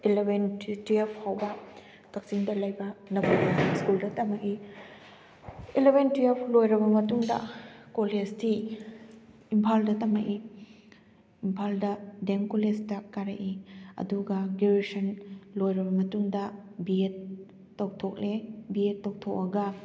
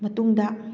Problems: none marked